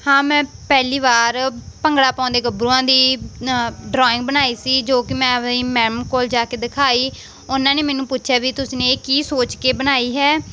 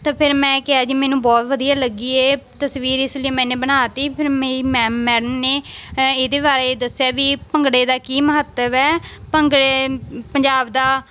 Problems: constant background noise